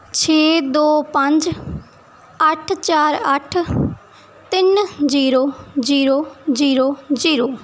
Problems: background sounds at intervals